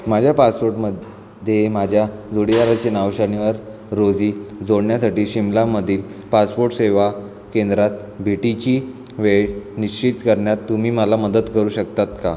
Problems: constant background noise, background conversations at intervals